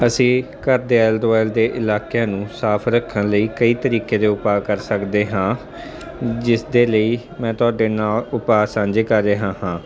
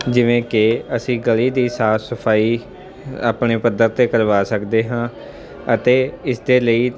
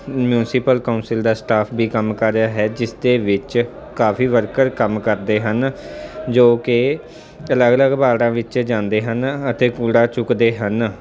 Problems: constant background noise